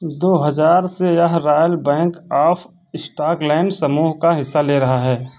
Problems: none marked